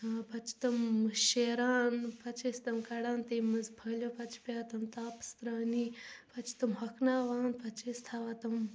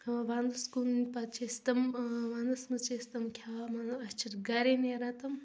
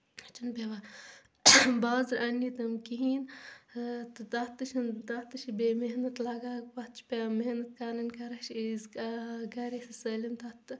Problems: constant background noise, background conversations at intervals